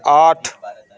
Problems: constant background noise, continuous background conversations